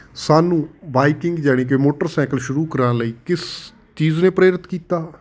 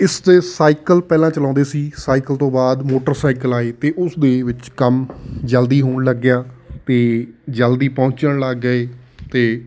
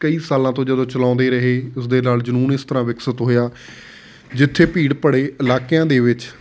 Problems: none marked